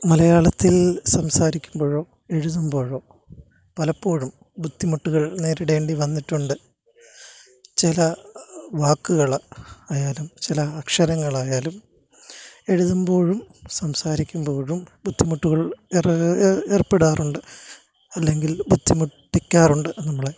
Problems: none marked